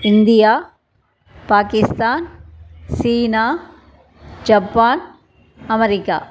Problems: background conversations at intervals